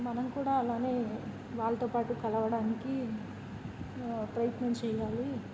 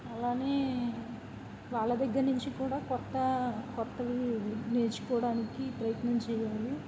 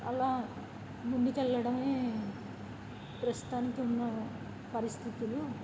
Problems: constant background noise